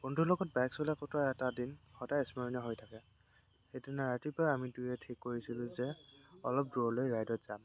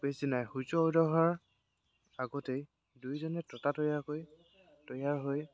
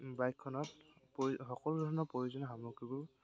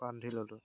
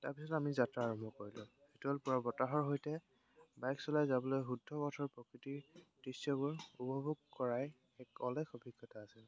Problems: constant background noise